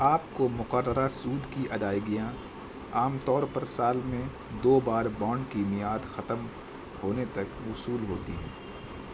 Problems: constant background noise